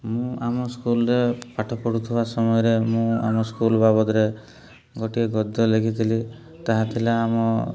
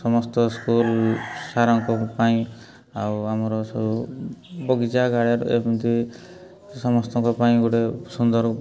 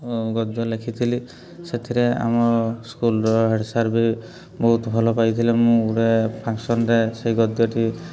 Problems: constant background noise